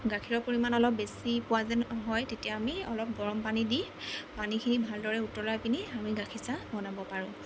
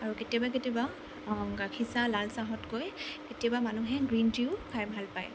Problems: constant background noise